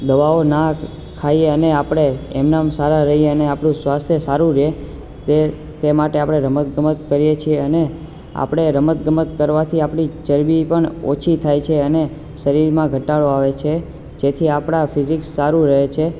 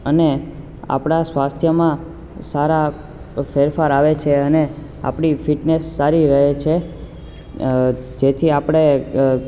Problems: constant background noise